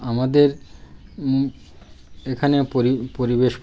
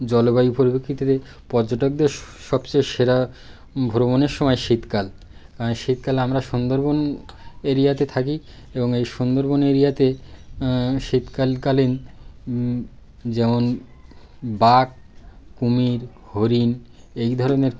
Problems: none marked